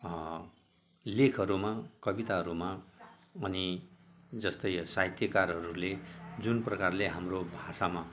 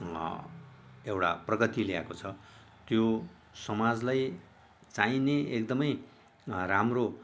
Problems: none marked